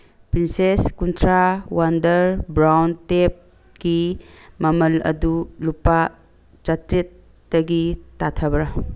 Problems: background sounds at intervals